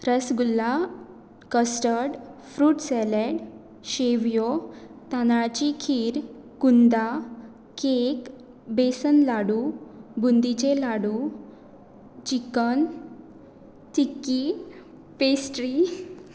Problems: constant background noise